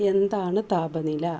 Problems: low volume